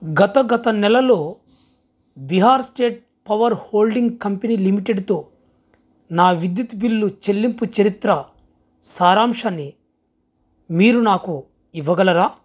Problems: background sounds at intervals